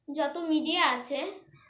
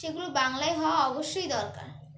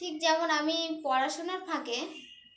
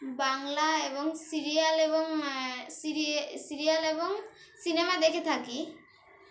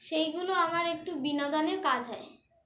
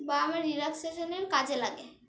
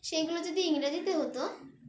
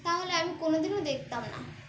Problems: constant background noise, background conversations at intervals